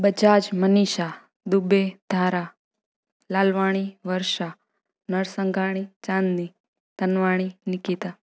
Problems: none marked